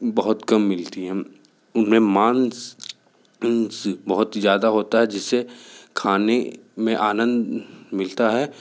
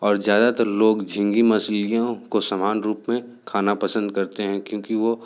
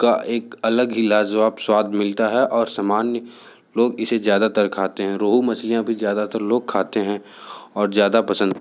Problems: background sounds at intervals